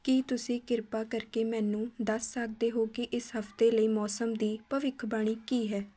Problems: background conversations at intervals